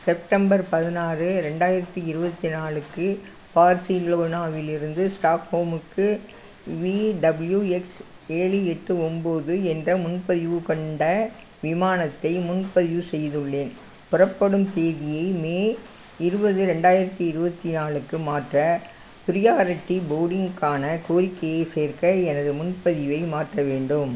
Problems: constant background noise